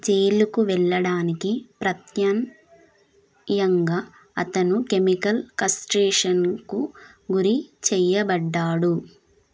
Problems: constant background noise